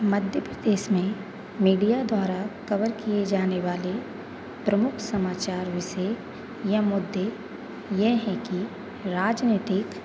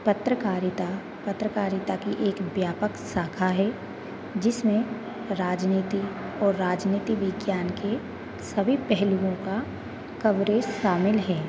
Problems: constant background noise, continuous background conversations